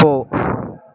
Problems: constant background noise